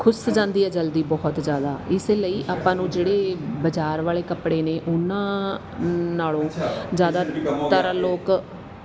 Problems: background conversations at intervals